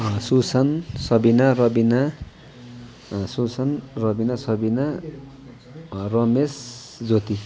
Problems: constant background noise, continuous background conversations